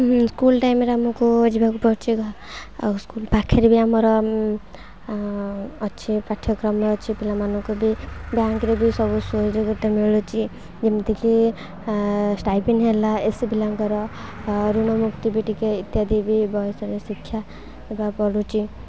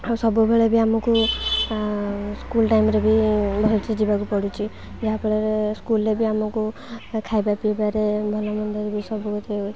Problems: constant background noise, continuous background conversations